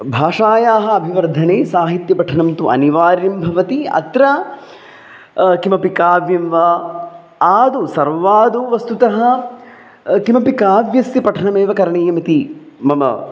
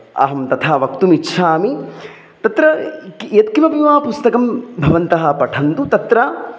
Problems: background sounds at intervals